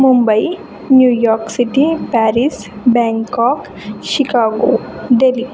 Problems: constant background noise, continuous background conversations